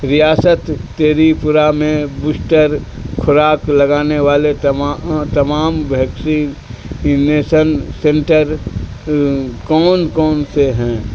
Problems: constant background noise